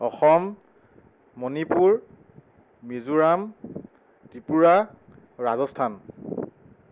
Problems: none marked